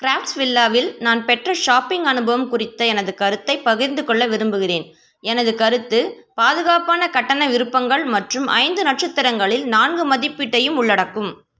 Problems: none marked